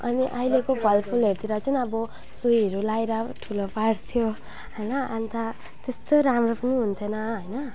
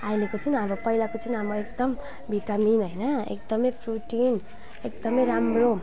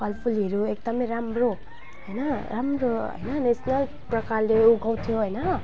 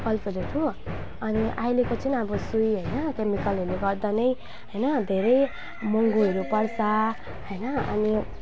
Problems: background sounds at intervals